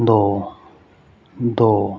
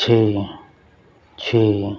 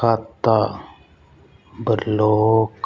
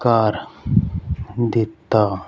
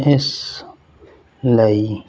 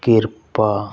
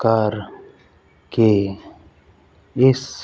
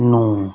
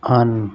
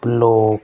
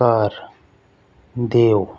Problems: constant background noise